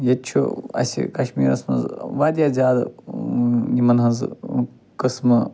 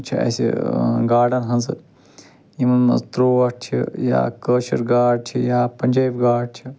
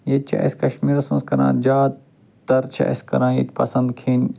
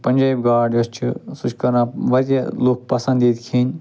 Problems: constant background noise